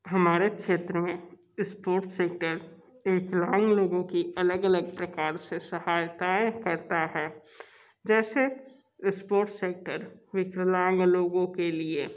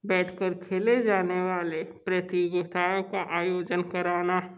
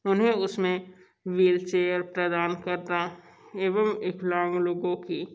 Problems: none marked